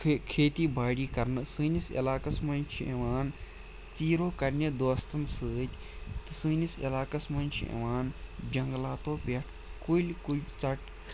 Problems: none marked